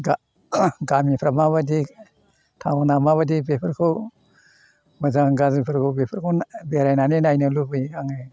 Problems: none marked